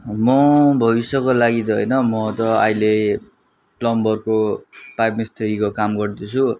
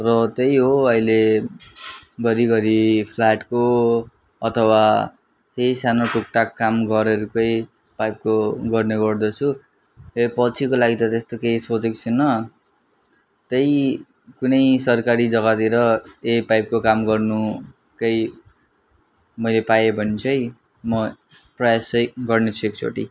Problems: background sounds at intervals